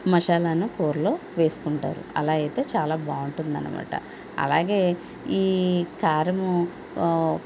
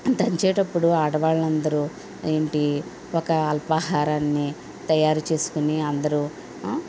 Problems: none marked